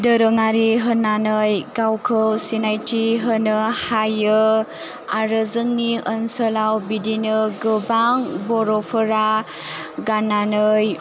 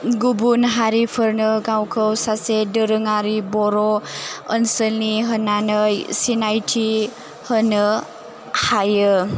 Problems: low volume